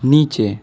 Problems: background sounds at intervals